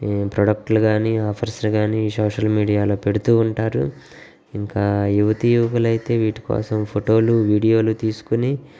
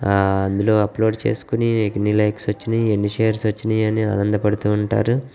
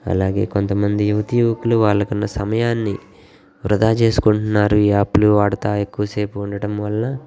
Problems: none marked